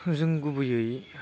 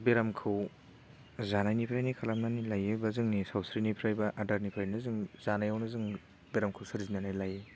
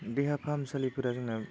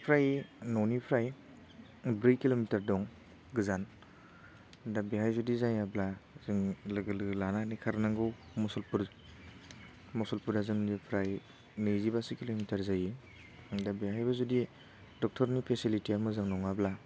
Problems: constant background noise